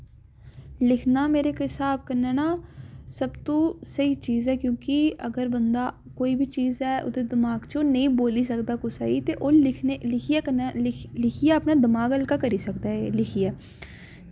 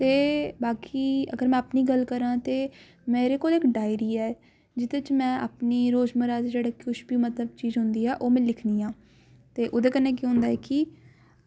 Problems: none marked